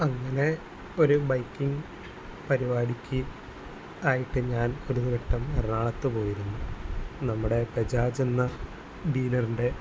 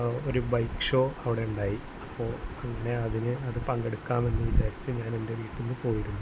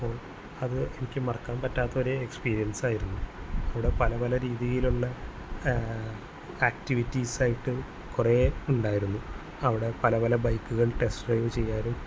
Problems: constant background noise